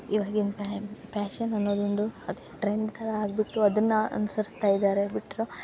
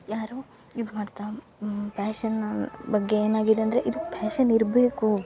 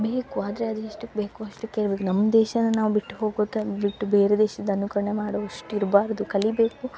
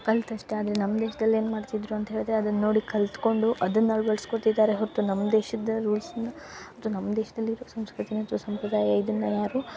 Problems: none marked